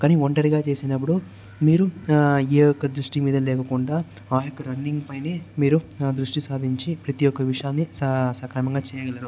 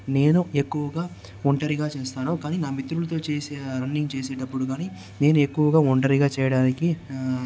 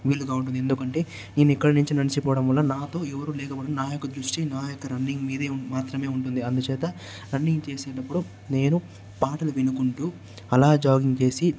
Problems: constant background noise